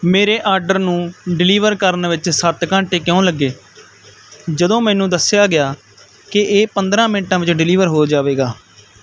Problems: none marked